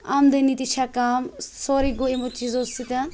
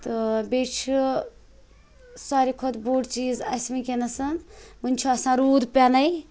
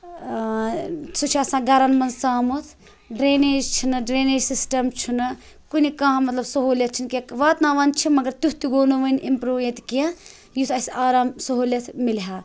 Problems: none marked